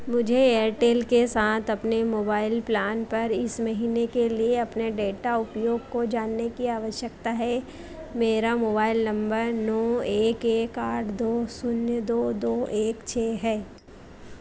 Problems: constant background noise